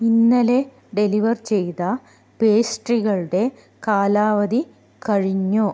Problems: none marked